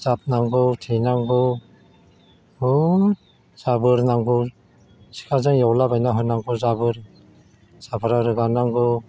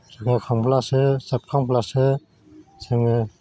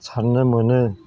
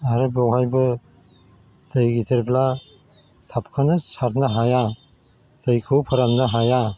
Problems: constant background noise